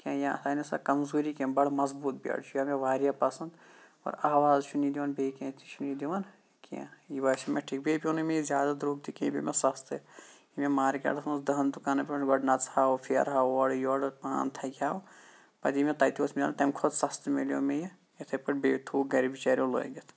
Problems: background sounds at intervals